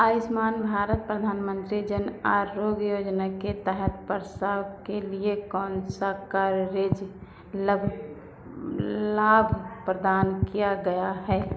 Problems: background sounds at intervals